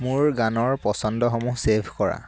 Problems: constant background noise